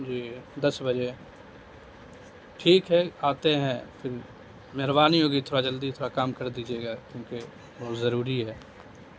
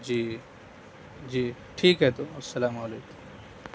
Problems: constant background noise